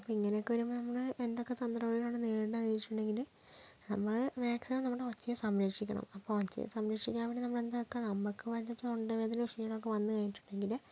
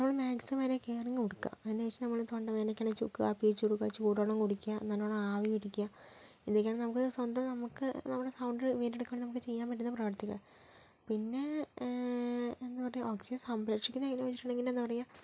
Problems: low volume